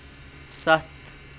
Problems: constant background noise